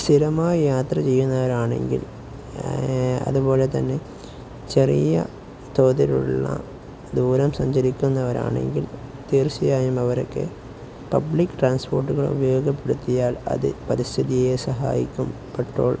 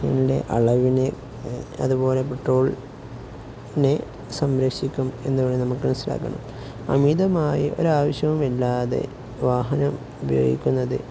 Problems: none marked